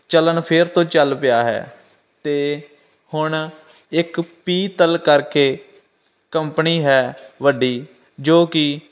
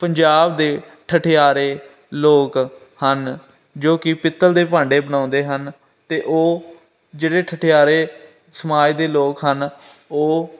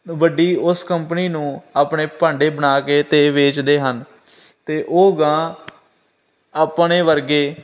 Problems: constant background noise